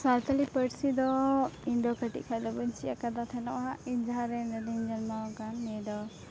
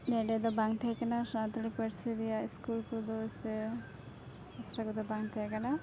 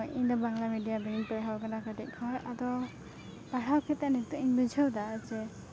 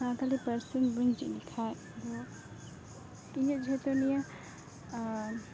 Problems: background sounds at intervals